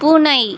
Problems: constant background noise